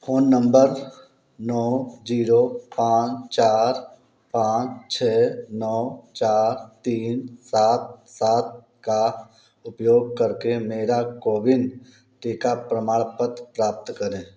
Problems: none marked